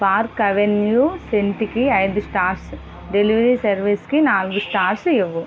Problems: constant background noise